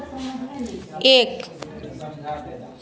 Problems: constant background noise